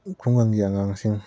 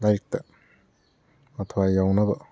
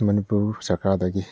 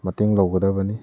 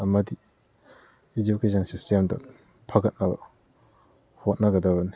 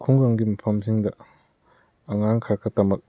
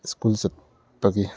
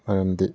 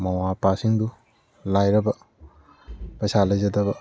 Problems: background sounds at intervals